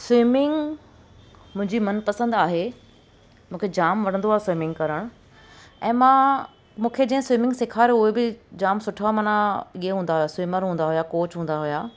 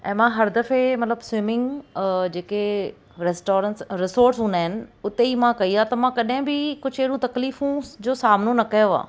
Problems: constant background noise